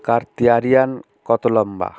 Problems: none marked